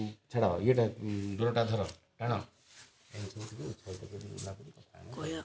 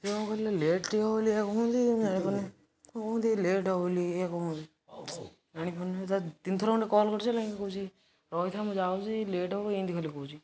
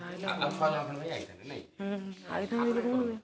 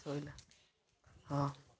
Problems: none marked